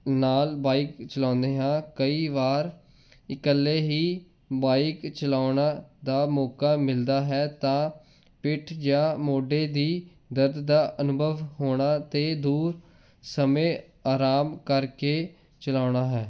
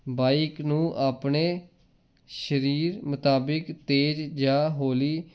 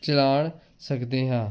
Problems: none marked